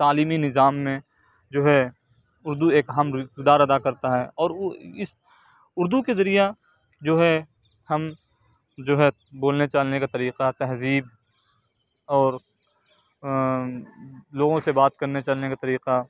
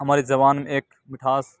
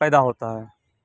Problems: none marked